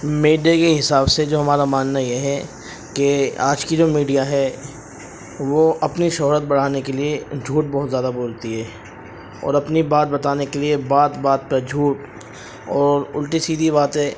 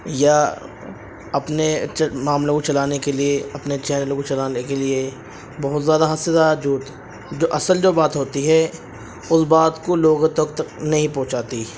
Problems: constant background noise